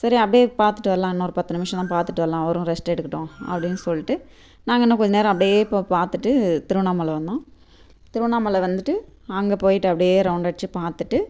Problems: constant background noise